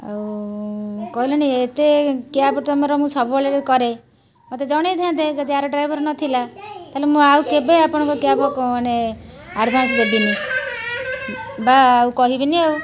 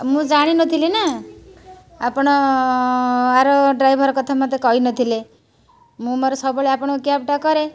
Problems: constant background noise, continuous background conversations